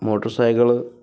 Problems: none marked